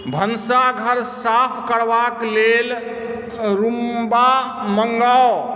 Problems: background sounds at intervals